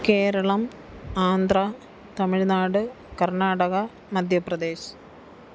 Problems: none marked